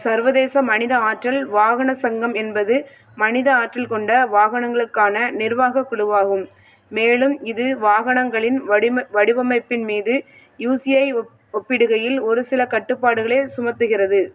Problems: none marked